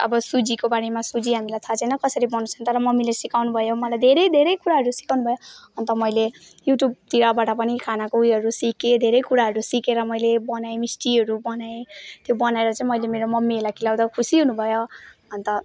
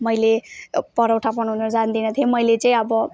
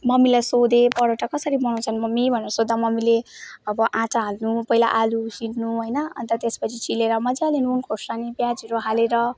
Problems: none marked